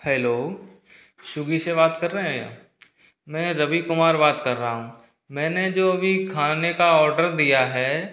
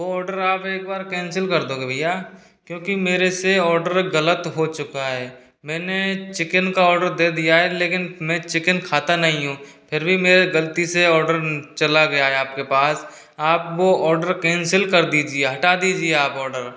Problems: none marked